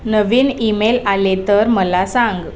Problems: background sounds at intervals, background conversations at intervals